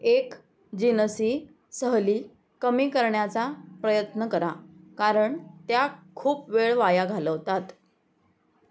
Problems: background sounds at intervals